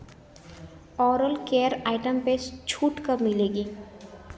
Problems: none marked